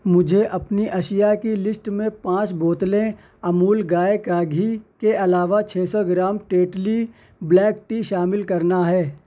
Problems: none marked